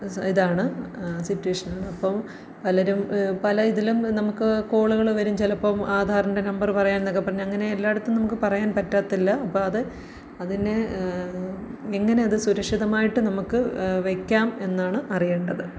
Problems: low volume